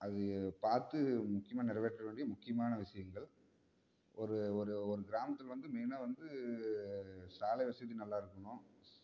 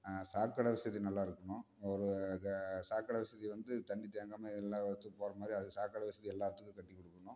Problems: background sounds at intervals, low volume